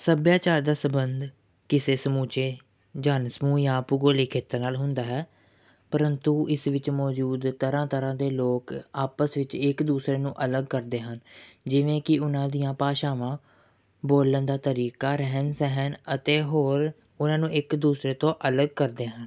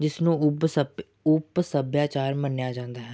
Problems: none marked